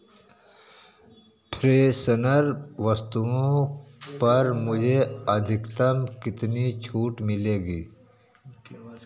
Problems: background conversations at intervals